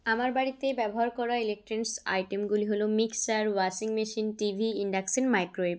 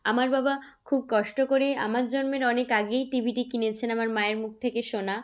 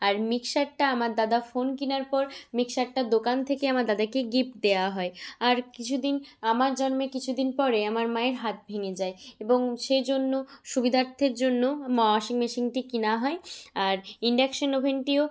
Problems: background conversations at intervals